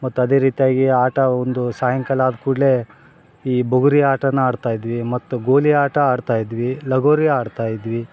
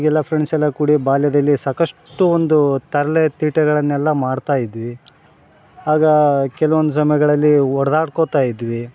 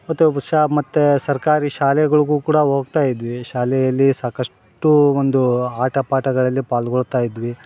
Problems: background sounds at intervals